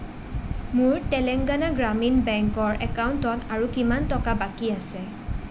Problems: constant background noise